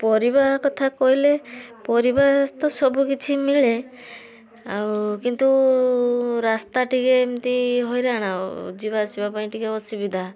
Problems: none marked